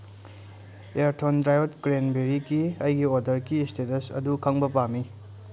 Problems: background sounds at intervals